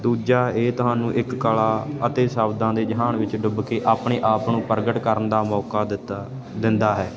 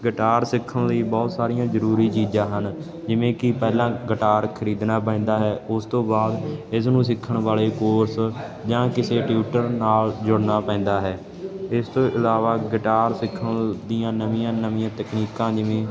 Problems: none marked